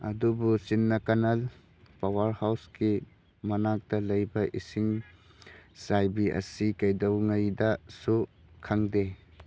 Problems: none marked